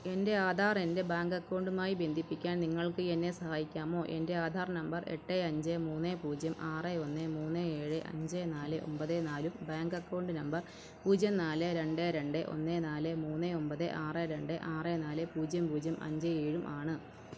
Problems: none marked